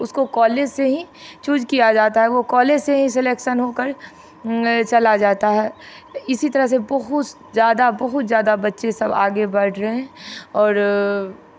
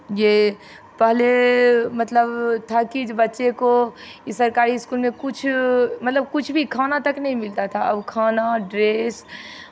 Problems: none marked